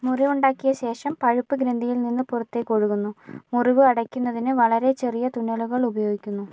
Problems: none marked